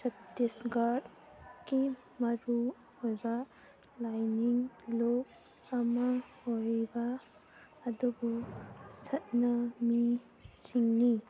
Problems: low volume